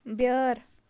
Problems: none marked